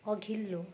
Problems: none marked